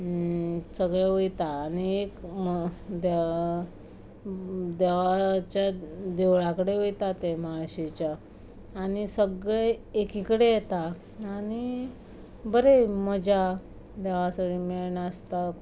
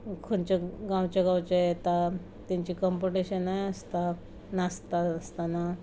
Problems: background sounds at intervals